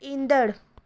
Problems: none marked